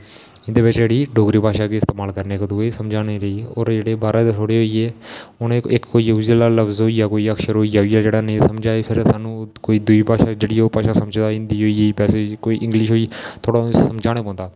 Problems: none marked